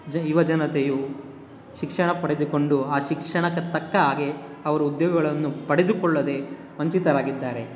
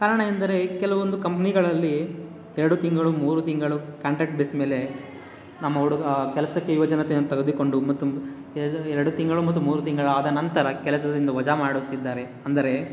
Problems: none marked